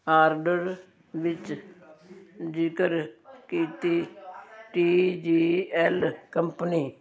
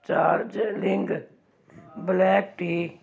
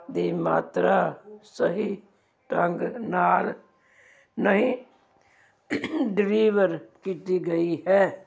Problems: continuous background conversations